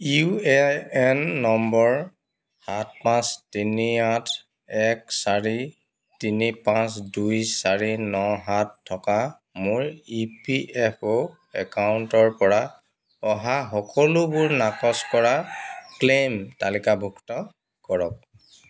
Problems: constant background noise